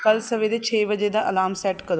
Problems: background sounds at intervals